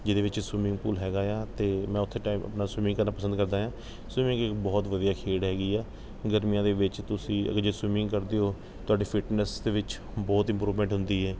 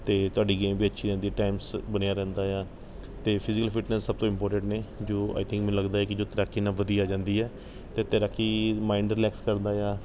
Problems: none marked